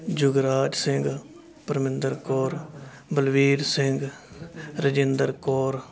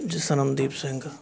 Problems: continuous background conversations